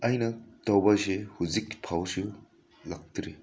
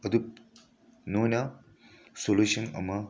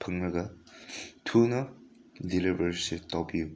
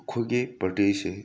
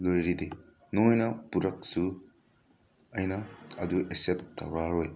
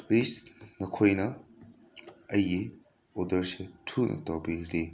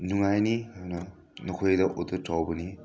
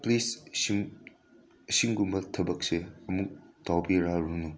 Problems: constant background noise